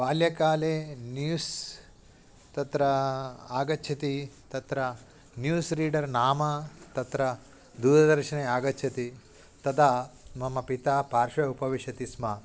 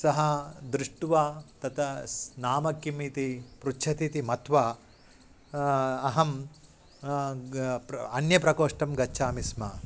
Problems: none marked